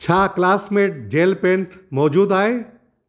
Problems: none marked